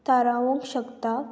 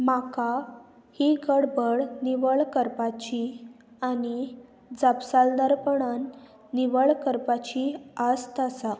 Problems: constant background noise